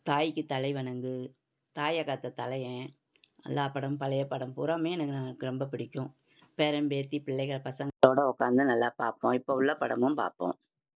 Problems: background sounds at intervals